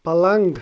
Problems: none marked